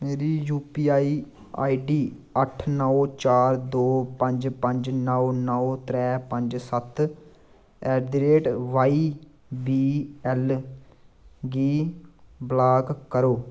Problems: none marked